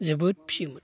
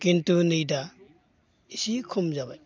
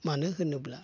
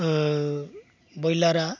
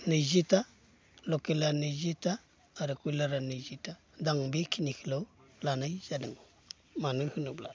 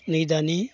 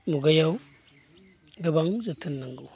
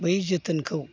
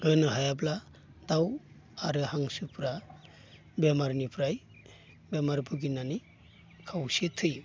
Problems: constant background noise